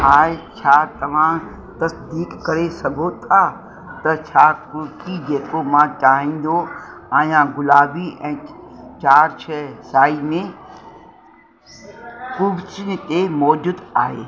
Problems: constant background noise